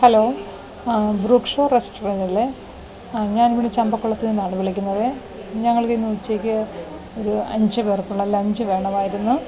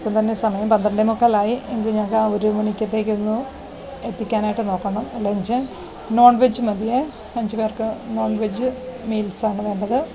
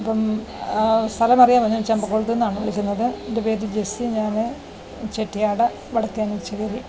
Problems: none marked